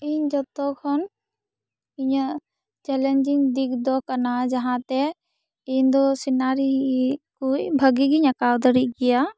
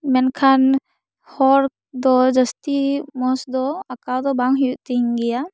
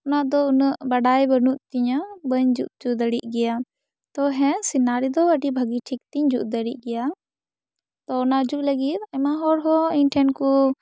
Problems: none marked